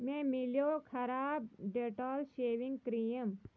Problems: background sounds at intervals